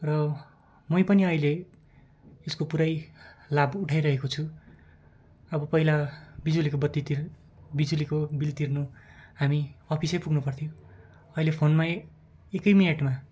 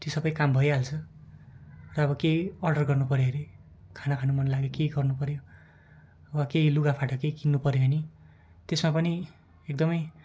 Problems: background sounds at intervals